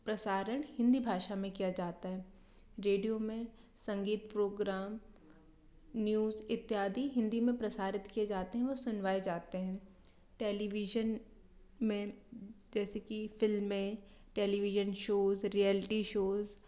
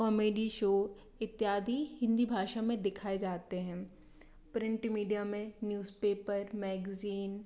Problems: low volume